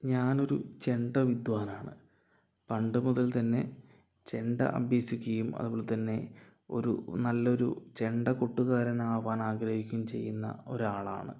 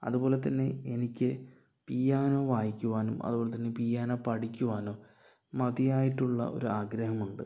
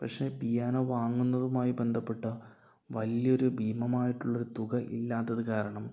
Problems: low volume